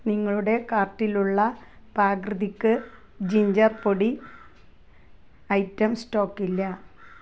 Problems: background sounds at intervals